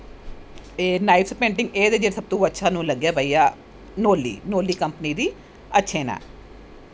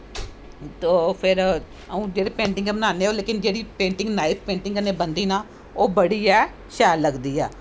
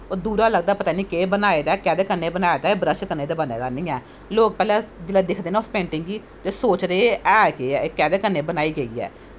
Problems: none marked